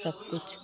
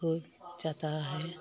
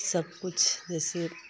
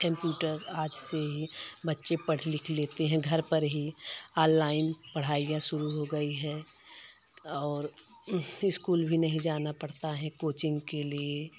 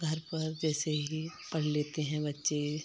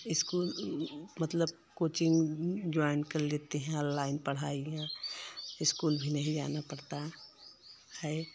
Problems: constant background noise